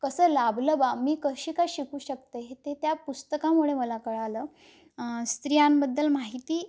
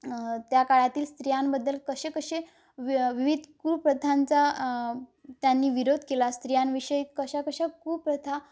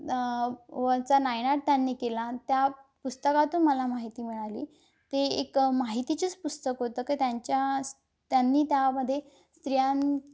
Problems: none marked